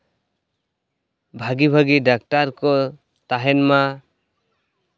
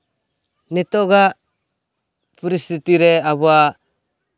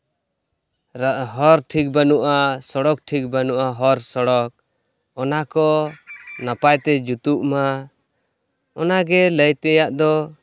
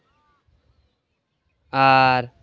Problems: background sounds at intervals